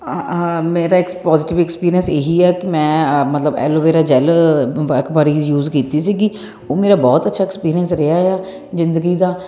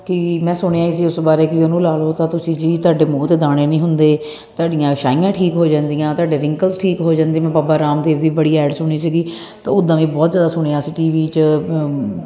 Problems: none marked